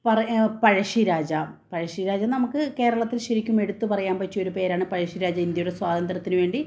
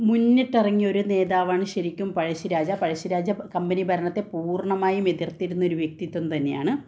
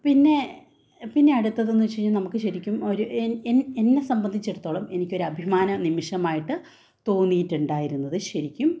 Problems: none marked